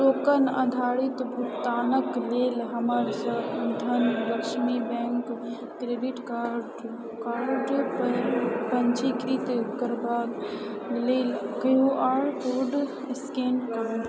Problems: constant background noise, low volume